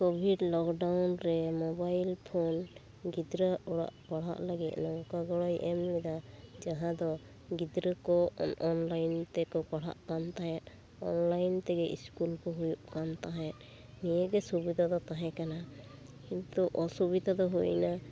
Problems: constant background noise